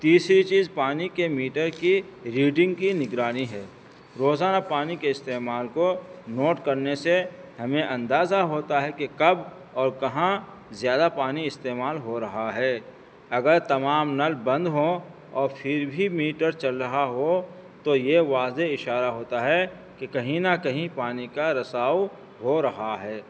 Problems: constant background noise